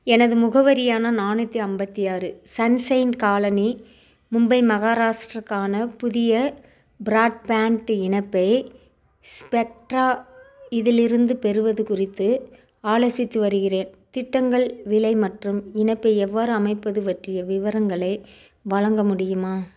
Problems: background sounds at intervals